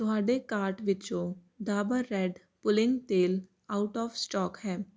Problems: constant background noise